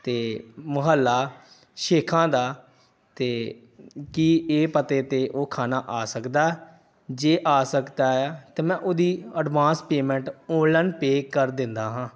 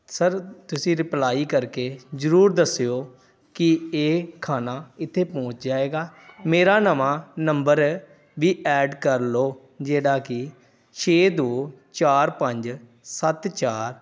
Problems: background conversations at intervals